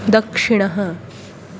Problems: constant background noise